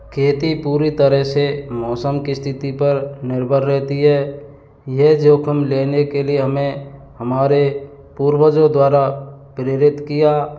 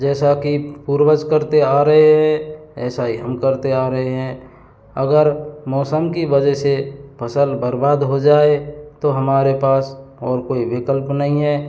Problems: none marked